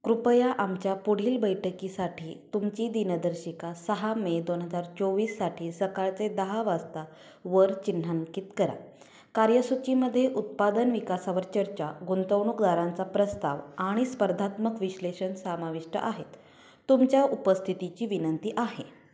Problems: none marked